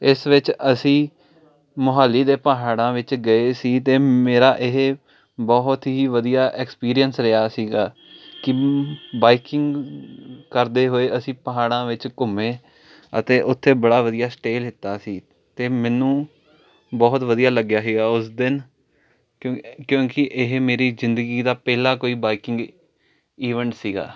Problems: constant background noise